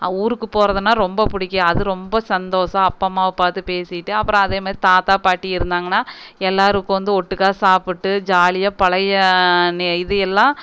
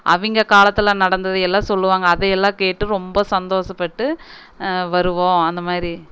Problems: none marked